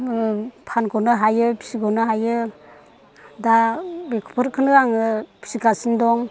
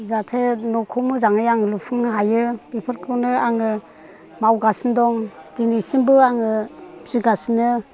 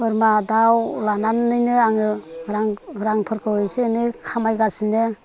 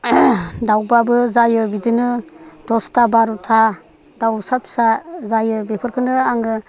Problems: constant background noise